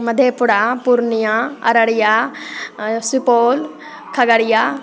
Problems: constant background noise, background conversations at intervals